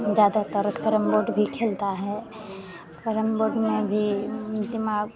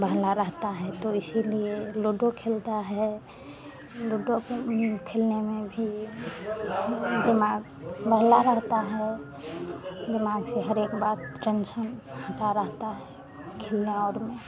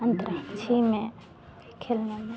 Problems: none marked